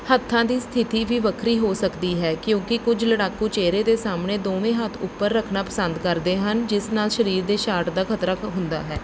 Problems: background sounds at intervals